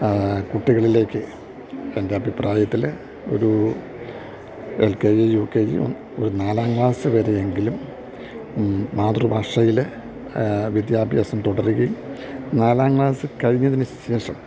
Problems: low volume